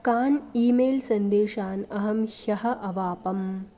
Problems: none marked